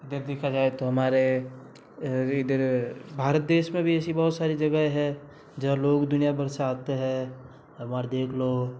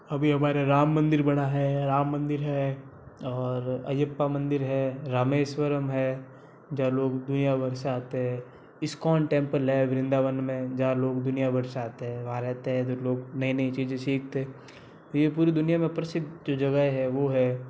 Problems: constant background noise